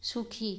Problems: constant background noise